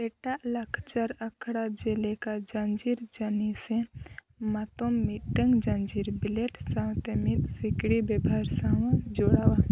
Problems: background sounds at intervals